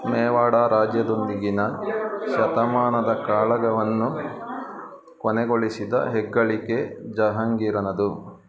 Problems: continuous background conversations